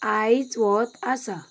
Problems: background sounds at intervals